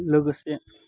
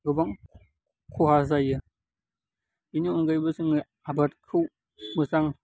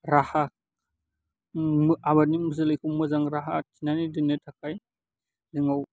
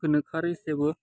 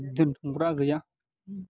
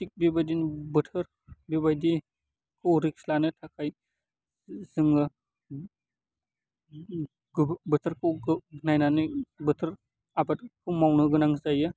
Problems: low volume